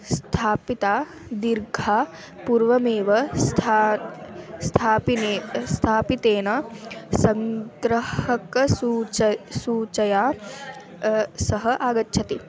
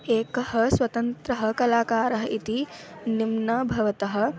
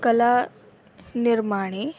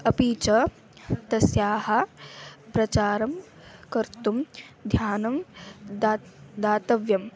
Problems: none marked